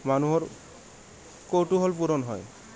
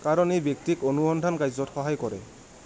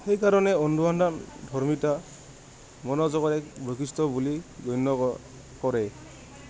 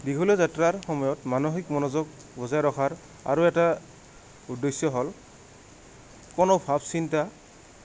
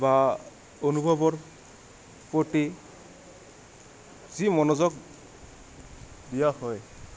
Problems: background sounds at intervals